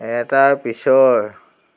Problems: none marked